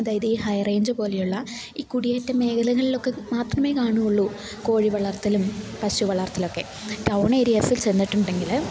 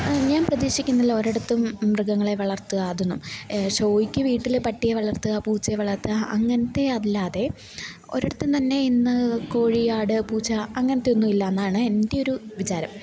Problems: low volume